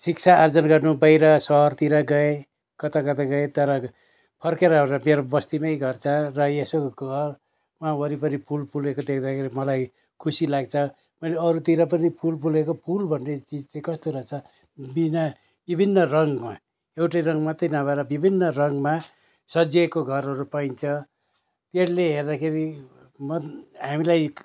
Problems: none marked